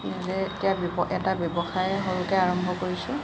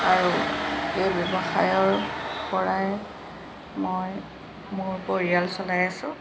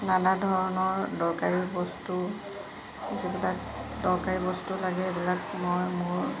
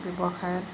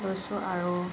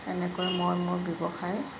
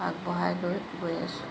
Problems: none marked